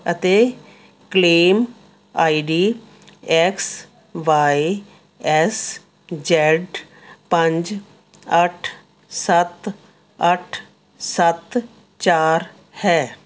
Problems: none marked